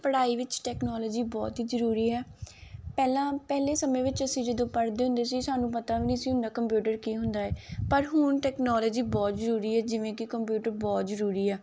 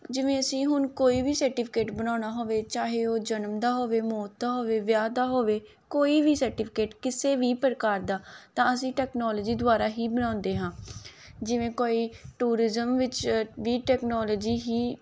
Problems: none marked